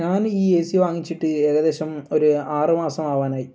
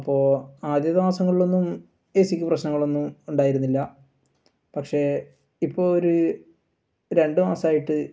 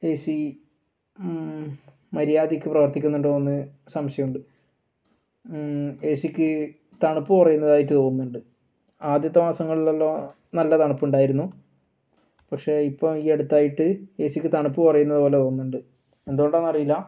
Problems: none marked